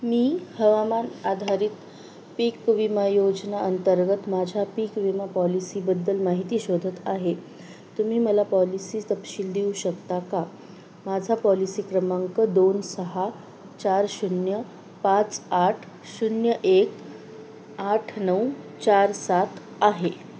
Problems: constant background noise